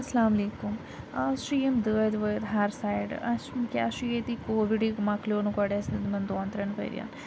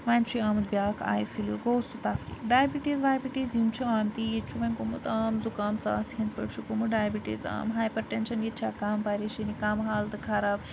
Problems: constant background noise